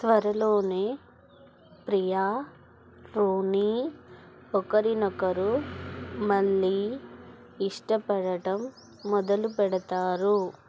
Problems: none marked